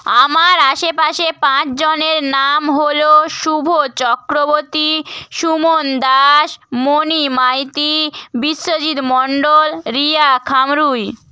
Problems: none marked